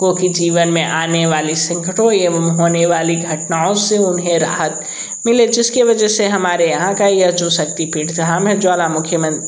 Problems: background sounds at intervals